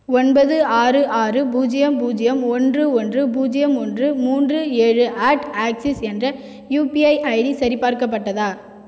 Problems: echo